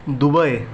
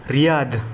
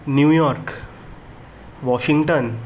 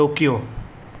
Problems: background sounds at intervals